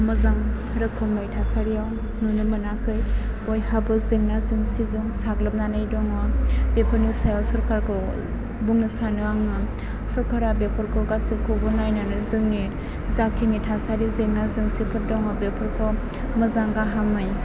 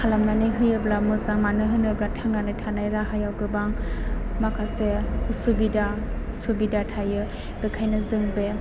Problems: constant background noise, background conversations at intervals